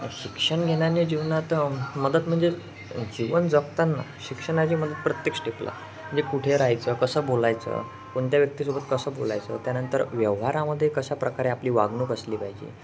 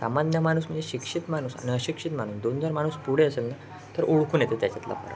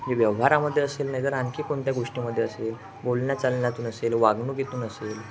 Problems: constant background noise, continuous background conversations